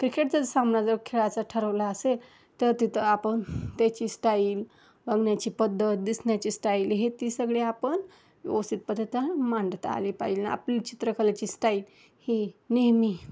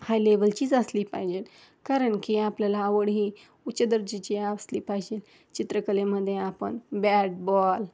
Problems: background sounds at intervals